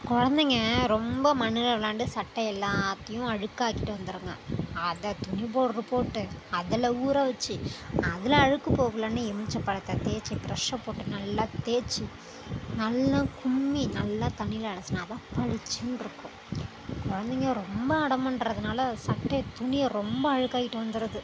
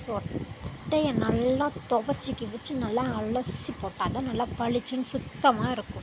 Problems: constant background noise